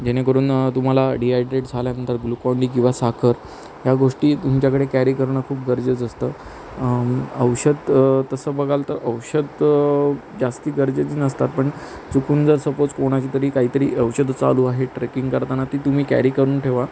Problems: constant background noise